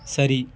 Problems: none marked